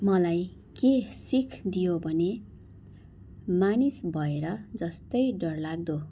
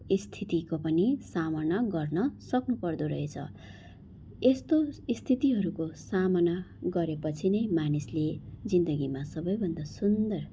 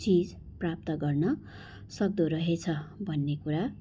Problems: background sounds at intervals